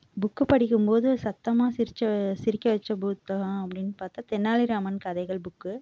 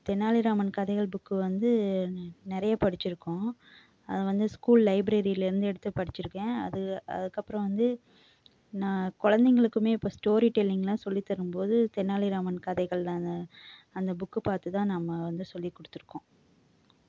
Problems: background sounds at intervals